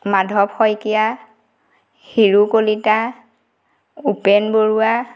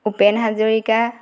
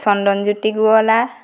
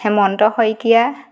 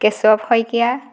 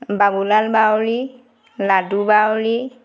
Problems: background sounds at intervals